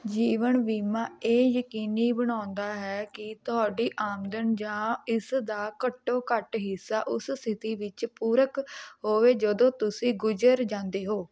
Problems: none marked